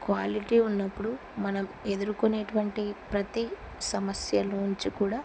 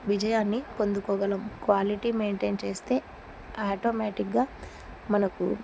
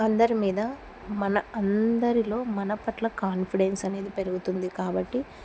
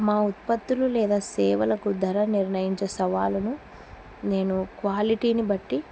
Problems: constant background noise